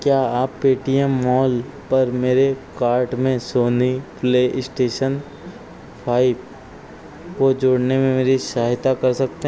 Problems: constant background noise